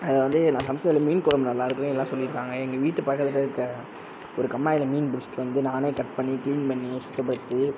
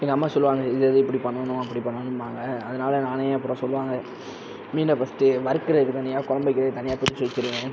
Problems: none marked